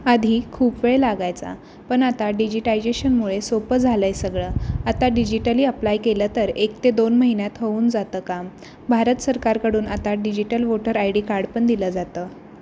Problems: constant background noise